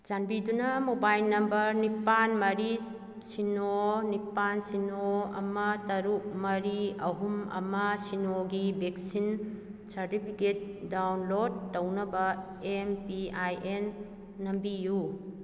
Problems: none marked